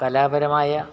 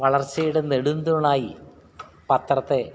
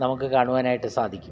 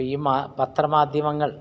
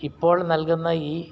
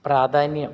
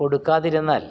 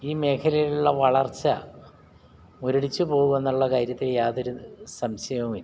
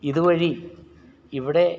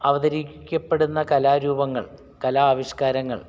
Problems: background sounds at intervals